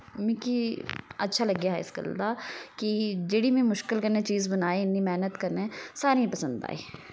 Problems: background sounds at intervals